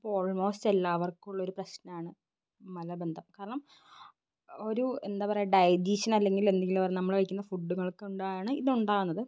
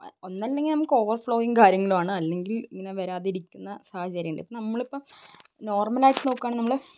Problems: background sounds at intervals